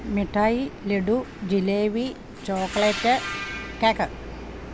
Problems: constant background noise